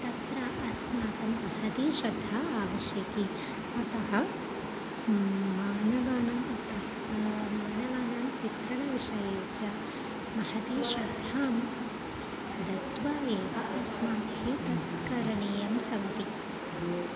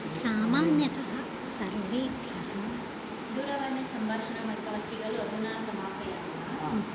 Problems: background conversations at intervals